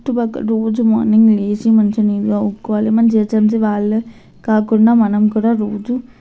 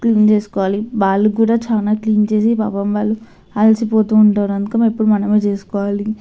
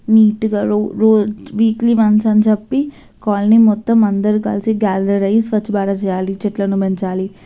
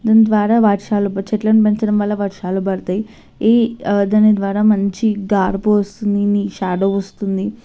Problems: constant background noise